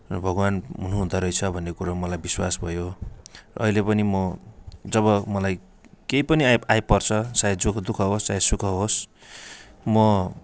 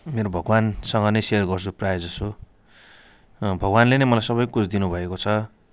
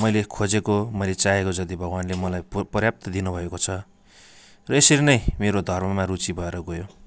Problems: none marked